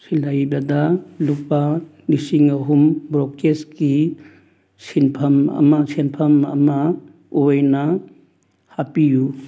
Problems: background sounds at intervals